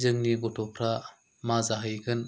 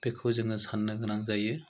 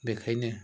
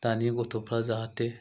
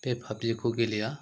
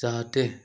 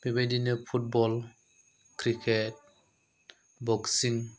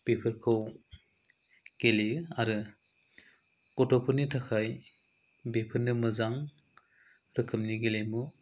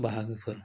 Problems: low volume